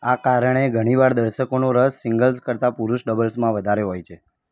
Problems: background conversations at intervals